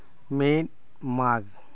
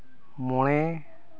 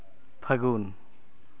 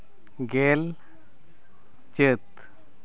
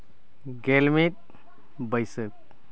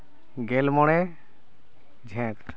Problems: none marked